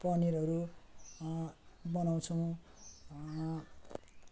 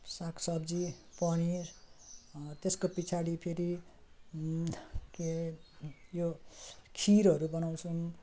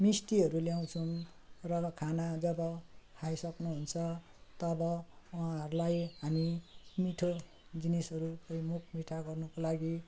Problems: none marked